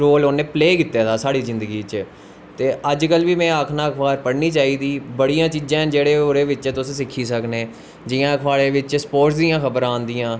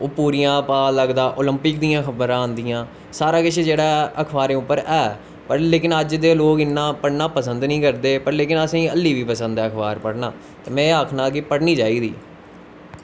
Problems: constant background noise